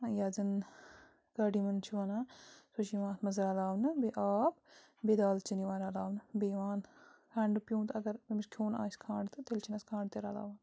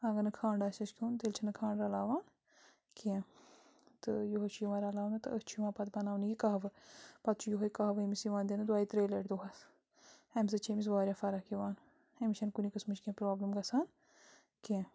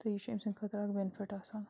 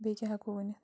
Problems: constant background noise